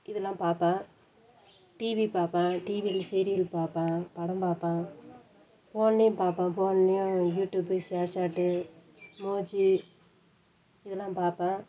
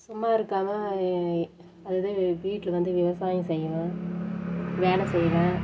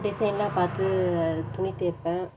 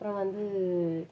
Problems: background sounds at intervals